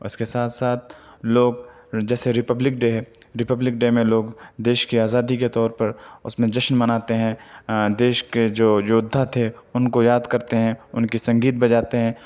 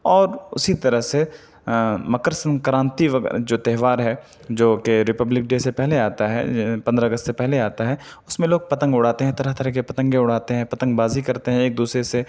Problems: none marked